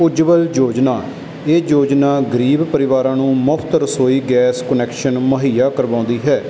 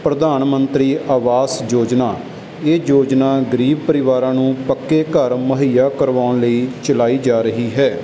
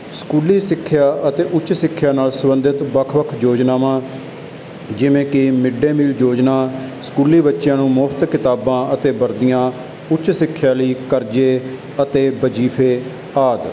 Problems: constant background noise